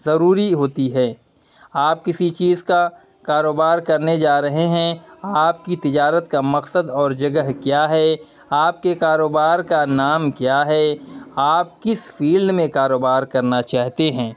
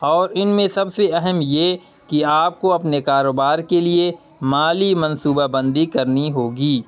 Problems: none marked